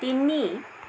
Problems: constant background noise